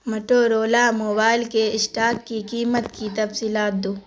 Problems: constant background noise